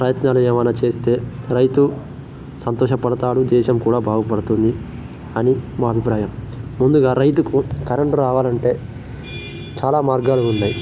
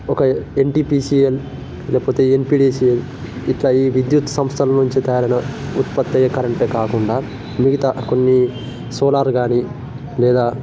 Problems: constant background noise